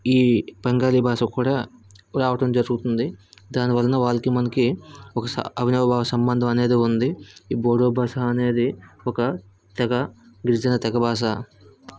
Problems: background sounds at intervals